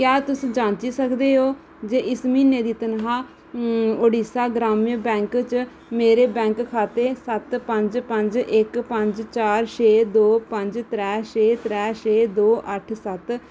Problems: none marked